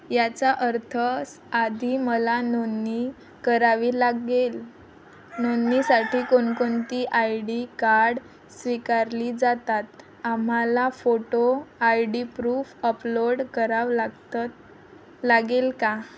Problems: constant background noise, background conversations at intervals